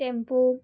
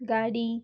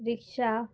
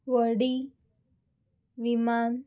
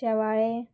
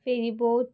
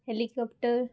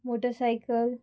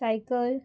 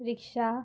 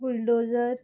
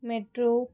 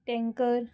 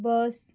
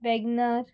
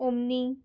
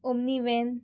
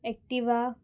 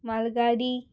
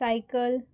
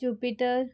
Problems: background sounds at intervals